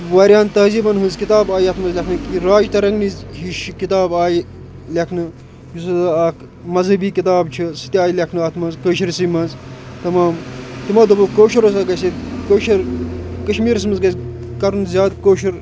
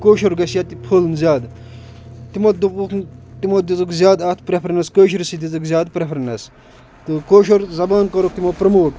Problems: constant background noise